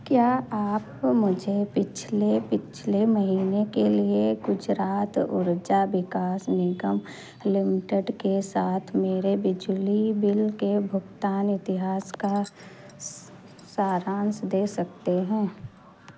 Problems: constant background noise